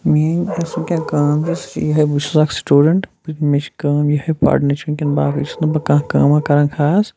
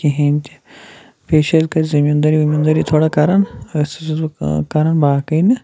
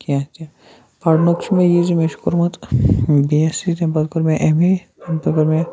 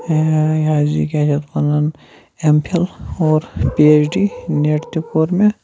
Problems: constant background noise